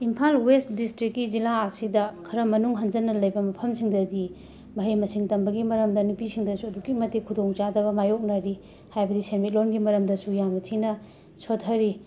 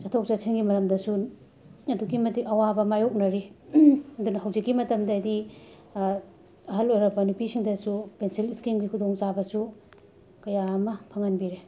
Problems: constant background noise